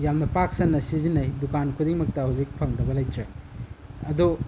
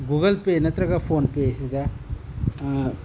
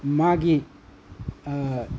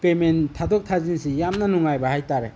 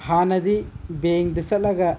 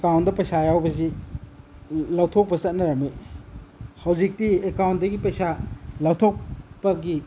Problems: none marked